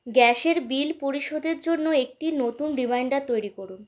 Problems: background sounds at intervals